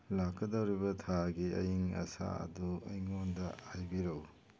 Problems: background sounds at intervals